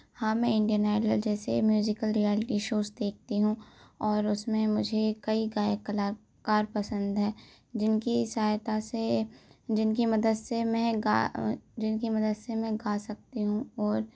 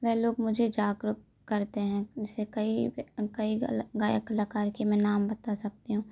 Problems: constant background noise